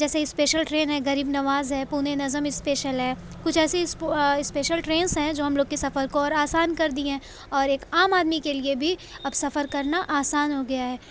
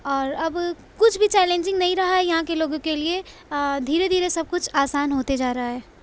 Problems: none marked